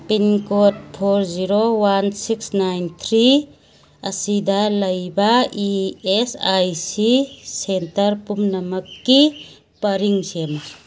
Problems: background sounds at intervals